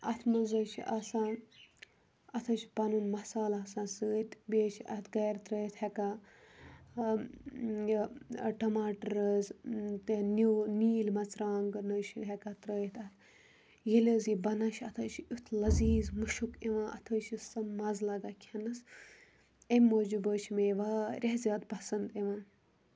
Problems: background sounds at intervals